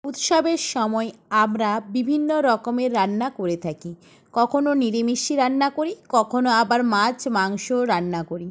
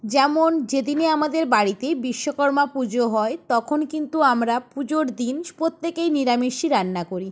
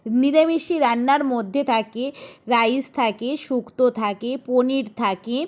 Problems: background sounds at intervals